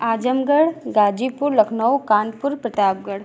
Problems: none marked